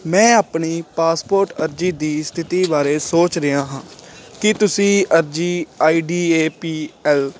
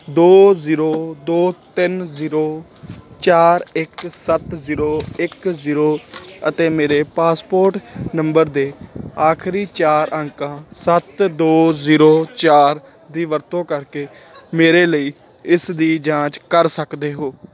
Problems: constant background noise